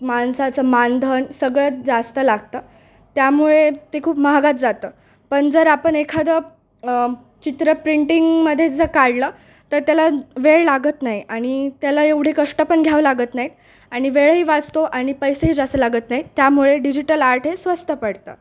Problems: background sounds at intervals